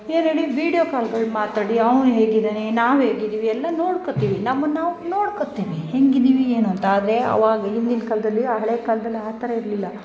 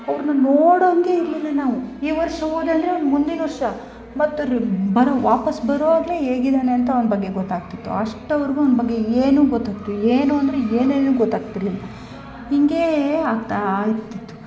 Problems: background sounds at intervals